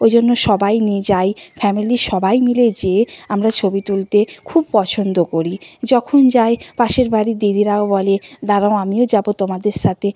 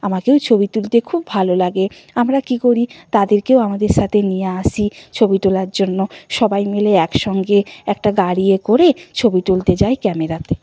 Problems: constant background noise